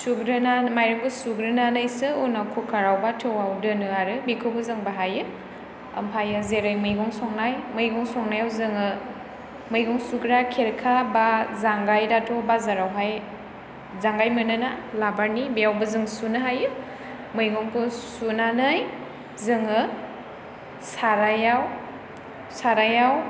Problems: none marked